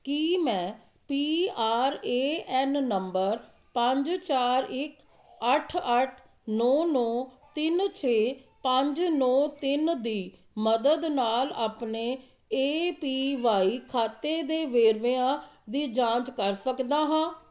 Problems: continuous background conversations